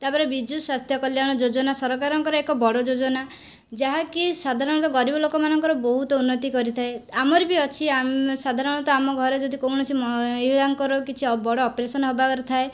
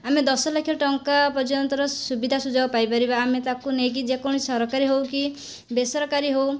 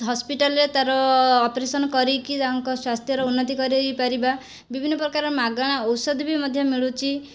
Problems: none marked